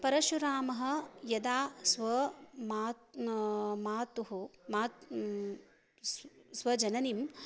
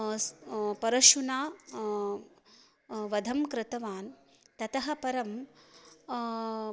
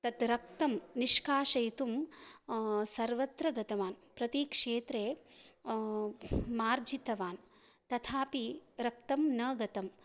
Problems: none marked